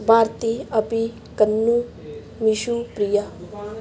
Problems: background conversations at intervals